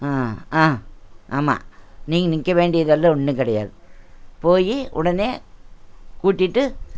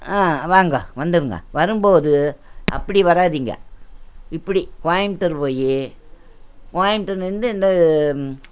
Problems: none marked